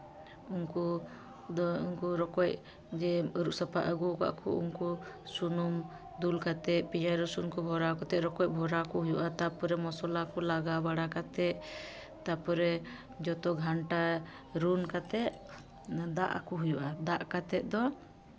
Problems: constant background noise, continuous background conversations